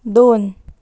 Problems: none marked